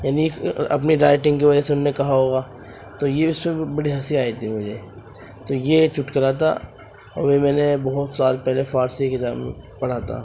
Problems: constant background noise